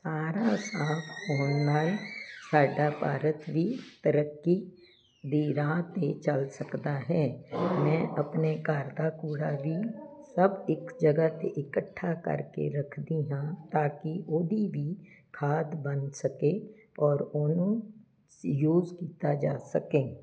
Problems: none marked